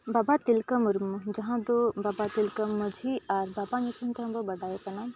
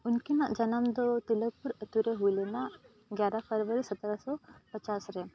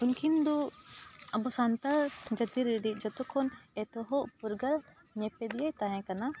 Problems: continuous background conversations